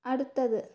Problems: low volume